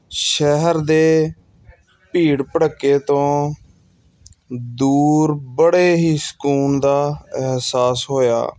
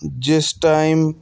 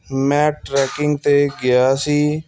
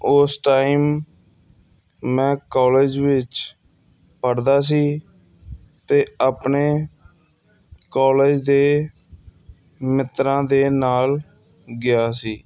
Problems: background sounds at intervals